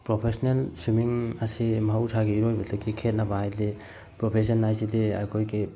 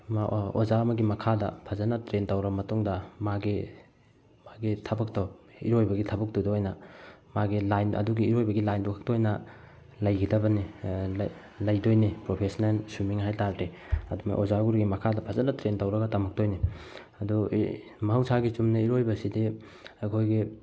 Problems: background sounds at intervals